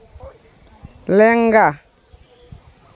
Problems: background sounds at intervals